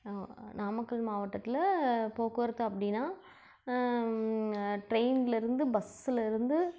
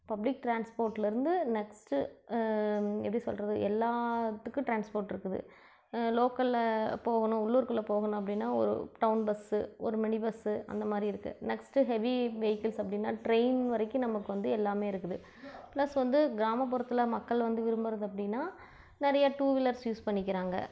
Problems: low volume